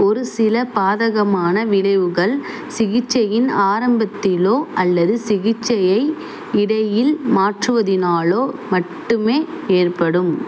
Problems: background sounds at intervals